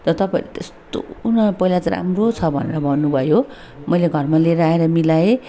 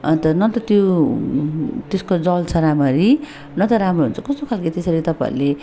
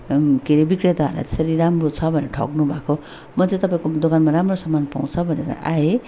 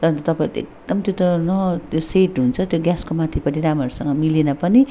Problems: constant background noise